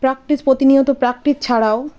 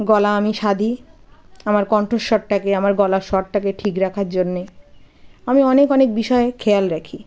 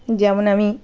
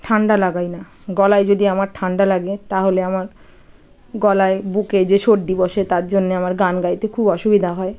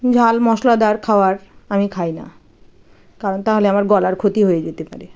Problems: none marked